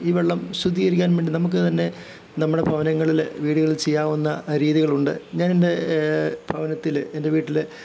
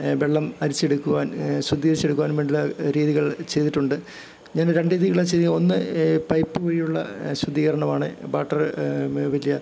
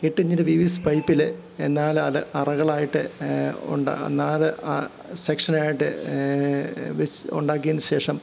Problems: none marked